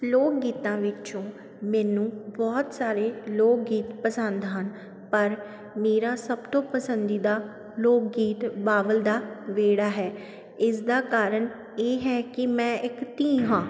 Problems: none marked